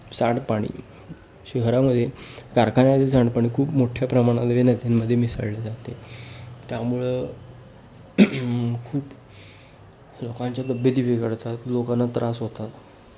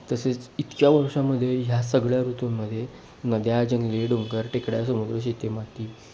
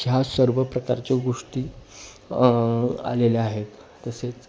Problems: none marked